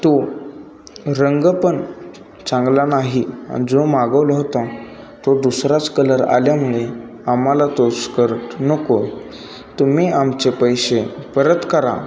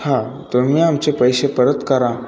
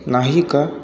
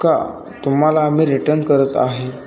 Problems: continuous background conversations